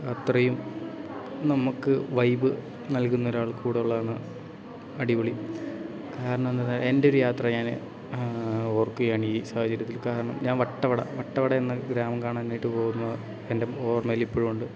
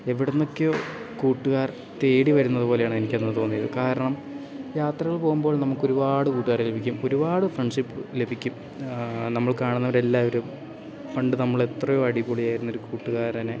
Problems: background sounds at intervals